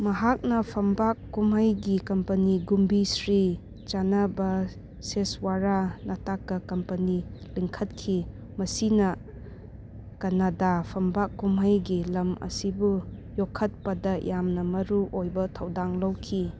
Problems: none marked